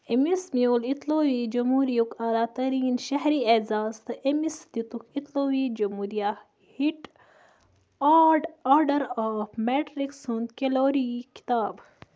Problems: background sounds at intervals